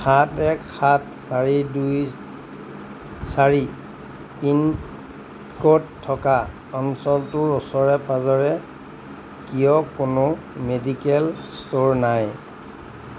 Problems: constant background noise